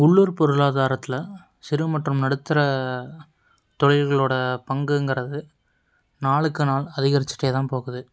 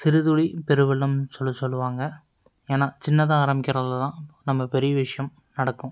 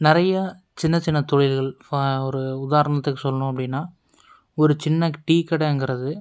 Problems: none marked